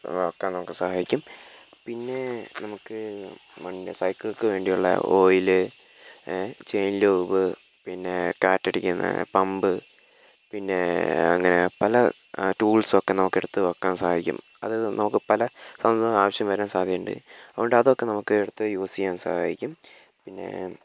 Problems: constant background noise, low volume